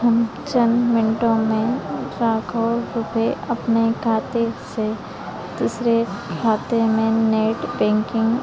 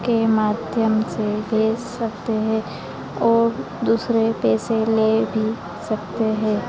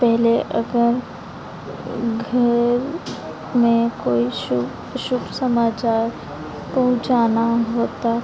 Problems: constant background noise, continuous background conversations